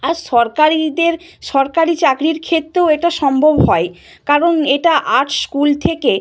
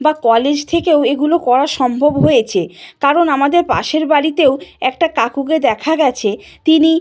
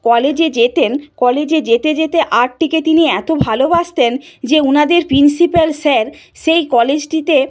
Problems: none marked